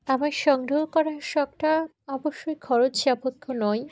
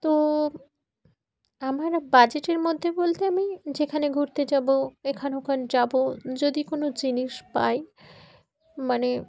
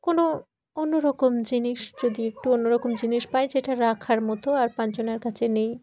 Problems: background sounds at intervals